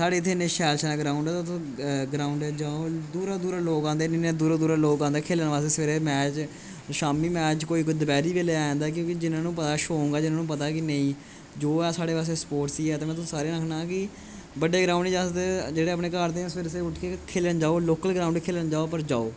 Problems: constant background noise